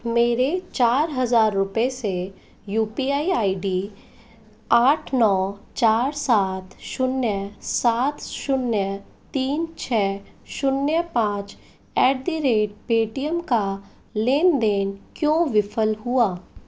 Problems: none marked